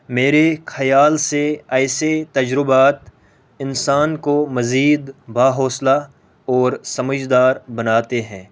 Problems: none marked